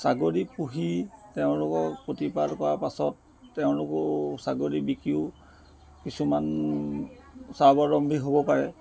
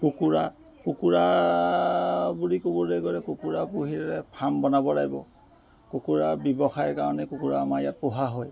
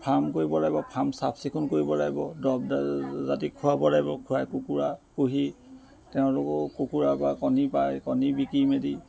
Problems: constant background noise